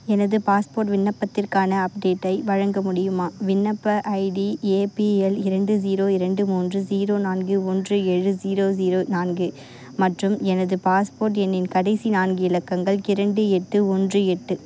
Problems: constant background noise, continuous background conversations